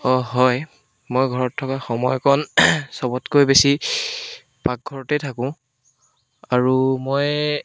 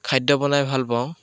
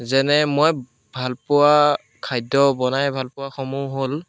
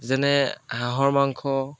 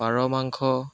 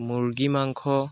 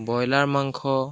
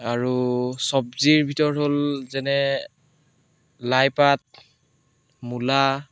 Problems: constant background noise